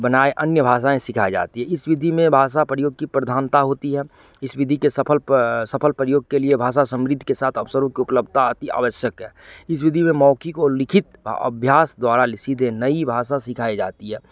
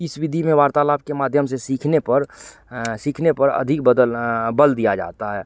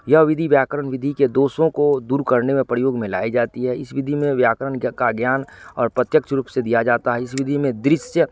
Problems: none marked